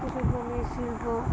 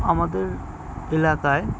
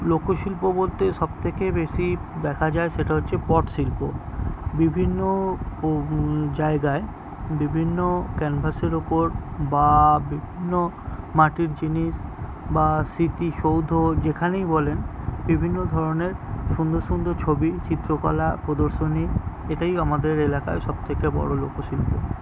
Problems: constant background noise, background conversations at intervals